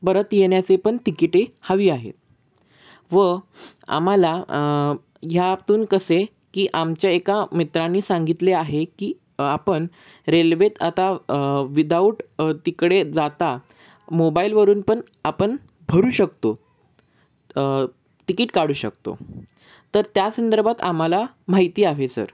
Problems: constant background noise